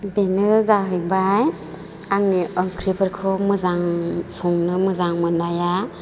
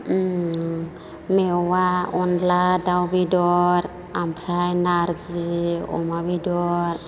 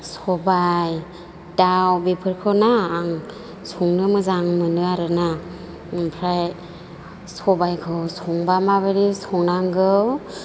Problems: none marked